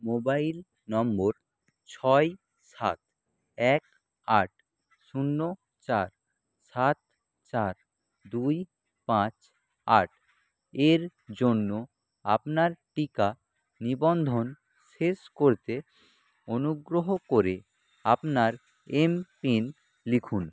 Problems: background sounds at intervals